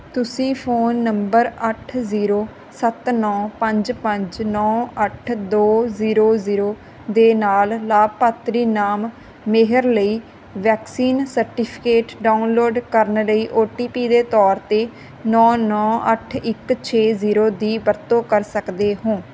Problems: background sounds at intervals